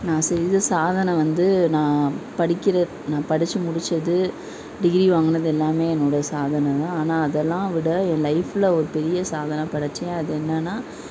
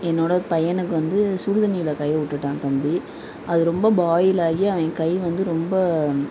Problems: none marked